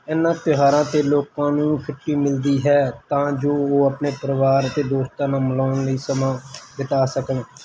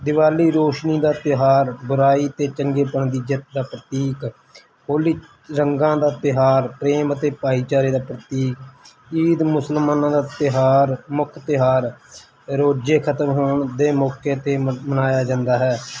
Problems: constant background noise